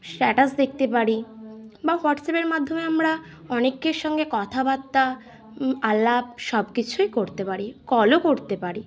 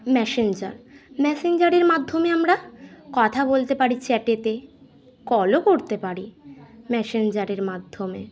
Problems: none marked